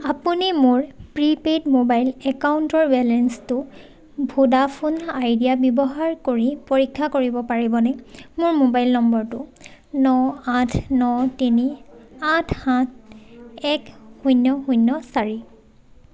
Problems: none marked